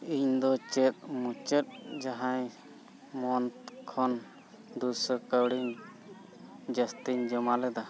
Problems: constant background noise